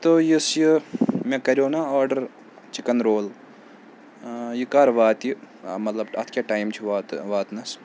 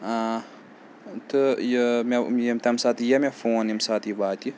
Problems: none marked